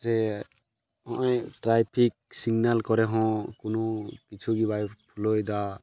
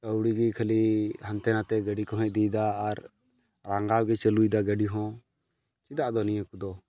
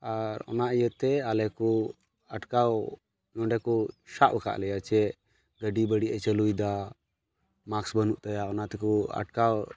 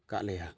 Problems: background sounds at intervals